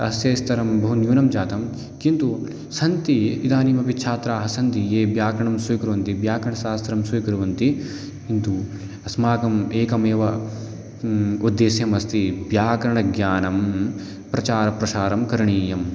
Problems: constant background noise